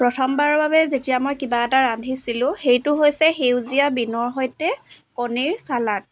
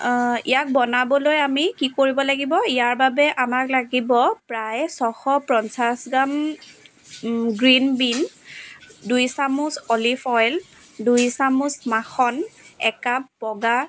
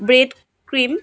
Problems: background sounds at intervals, background conversations at intervals